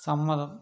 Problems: none marked